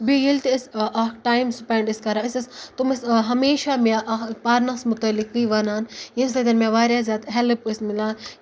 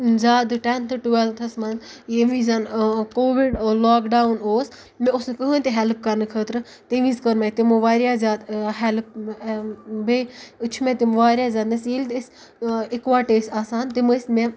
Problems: background sounds at intervals